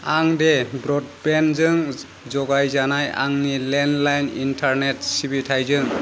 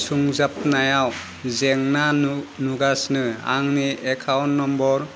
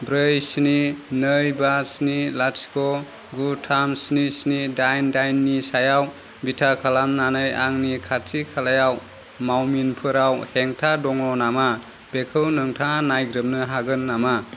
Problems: constant background noise